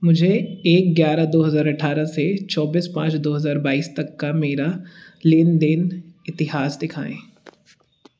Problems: background sounds at intervals